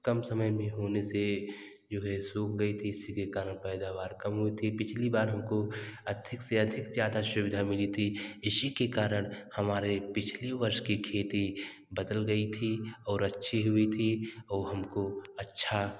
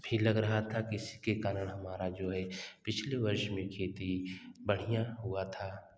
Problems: none marked